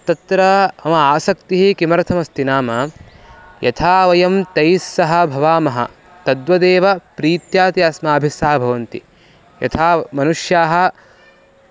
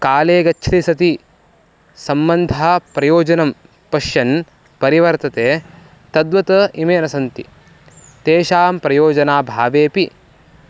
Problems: background sounds at intervals